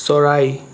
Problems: background sounds at intervals